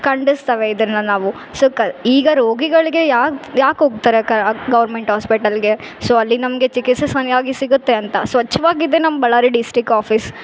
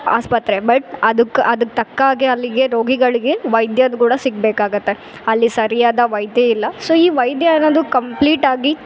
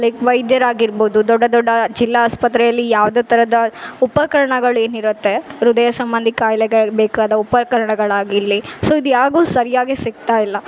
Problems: background sounds at intervals